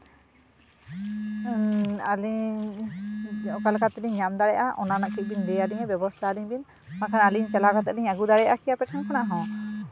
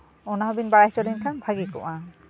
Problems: background sounds at intervals